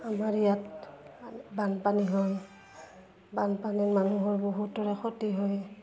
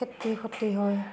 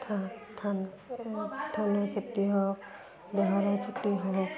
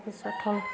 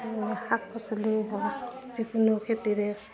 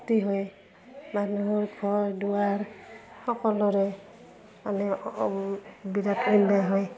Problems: background sounds at intervals, continuous background conversations